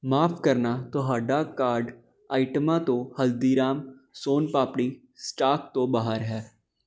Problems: none marked